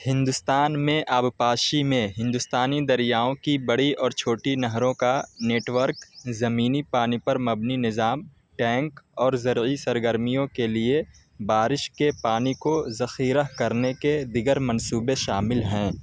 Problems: constant background noise